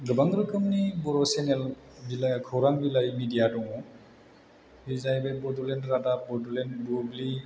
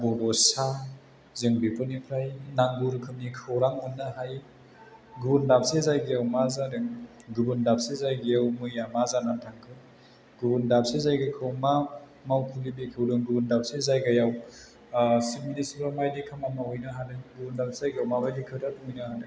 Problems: low volume